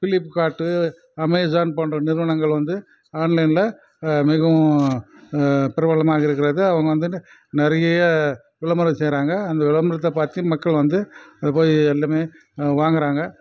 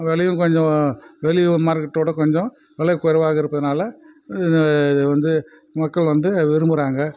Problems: none marked